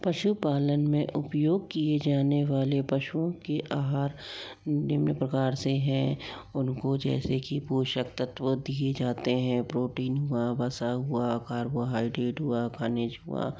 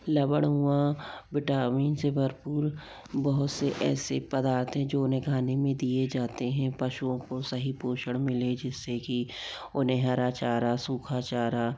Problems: low volume